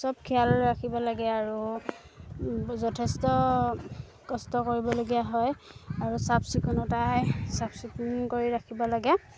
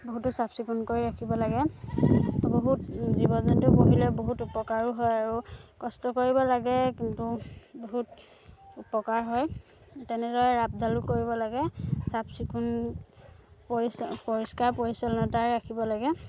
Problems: none marked